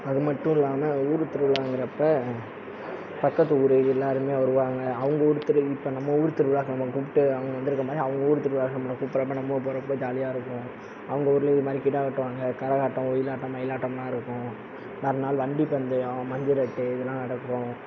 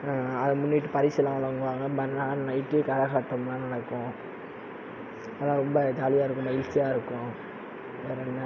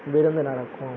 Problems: constant background noise